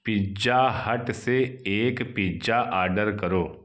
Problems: background sounds at intervals